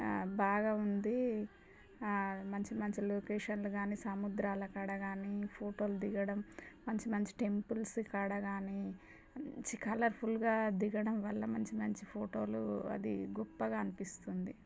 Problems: low volume